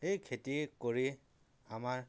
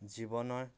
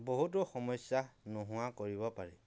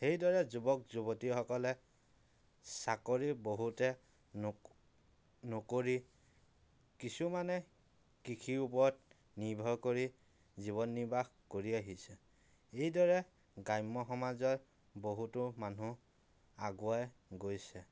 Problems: none marked